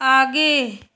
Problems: none marked